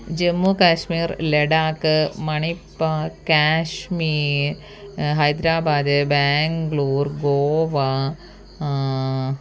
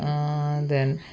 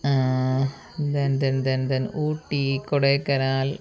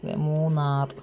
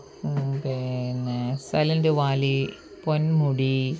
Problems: background sounds at intervals, low volume